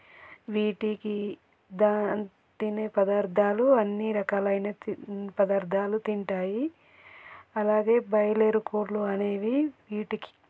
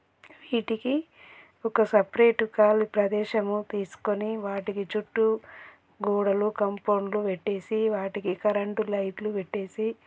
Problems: none marked